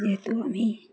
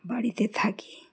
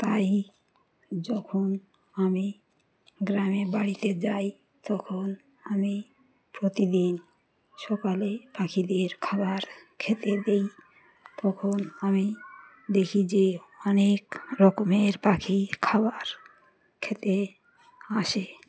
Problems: none marked